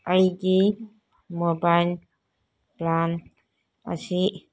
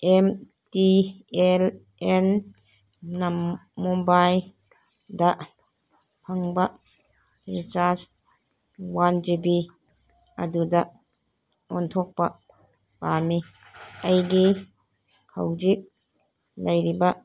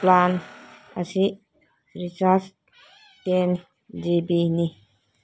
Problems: background sounds at intervals, background conversations at intervals